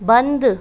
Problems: constant background noise